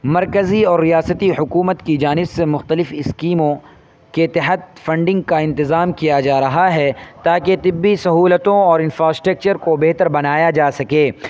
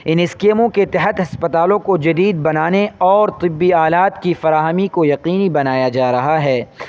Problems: constant background noise